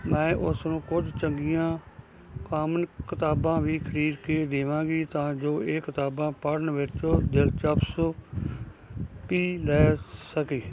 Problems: constant background noise, background conversations at intervals